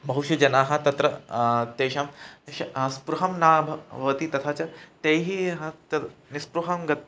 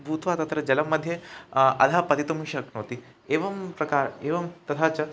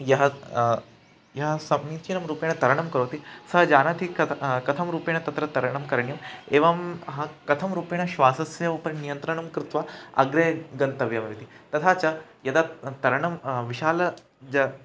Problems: background sounds at intervals